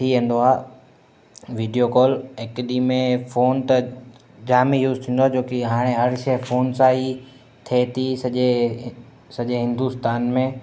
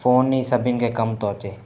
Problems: constant background noise, echo